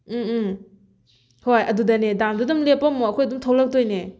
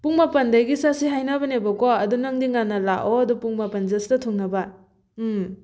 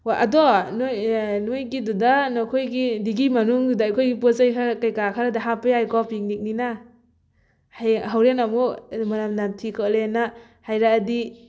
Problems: background sounds at intervals